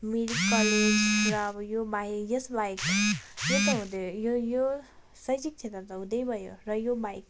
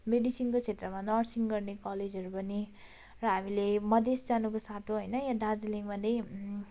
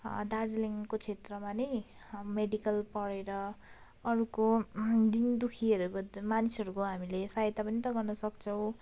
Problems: constant background noise